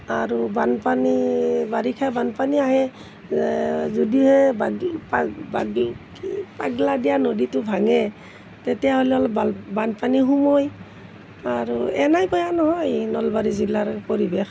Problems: none marked